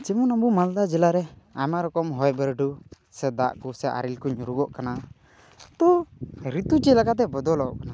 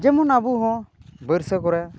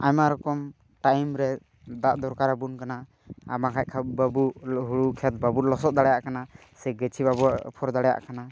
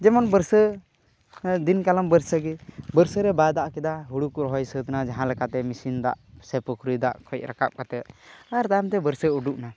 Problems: none marked